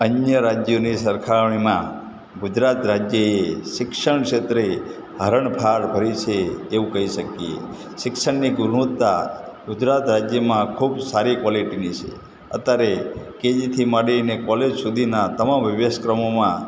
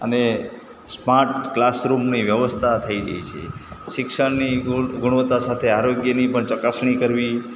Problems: constant background noise